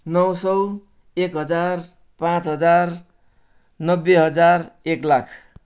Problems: none marked